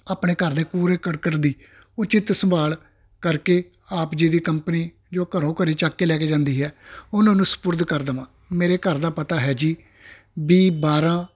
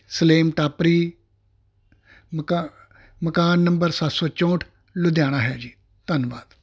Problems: constant background noise